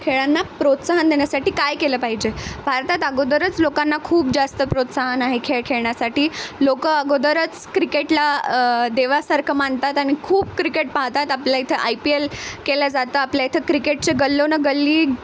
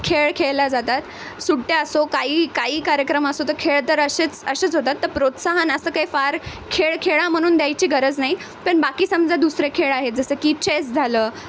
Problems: constant background noise